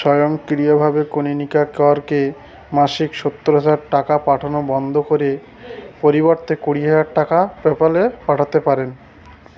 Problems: none marked